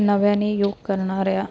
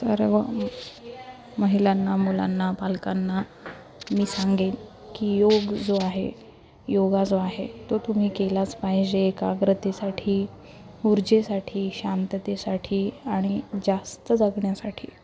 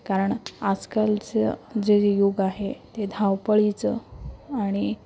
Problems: constant background noise, continuous background conversations, low volume